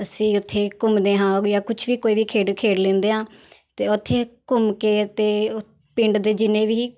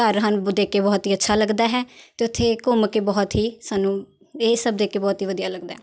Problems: none marked